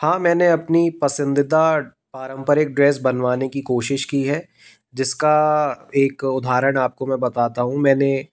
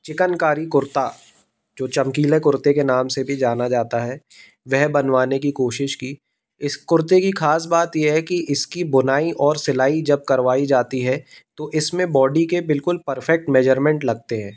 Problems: constant background noise